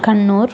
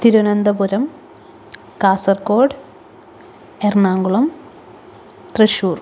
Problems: constant background noise